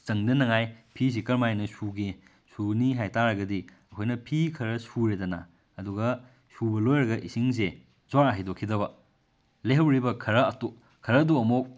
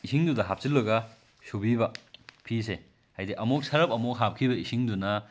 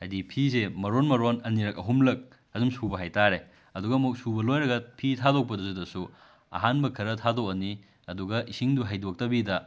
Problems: none marked